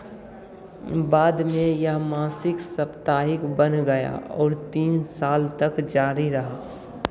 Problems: constant background noise